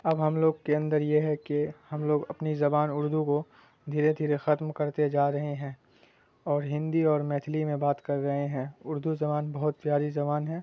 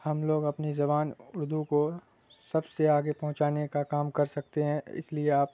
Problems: constant background noise